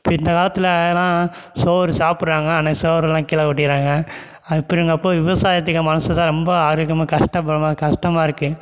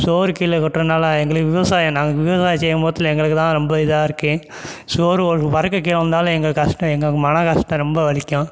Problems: background sounds at intervals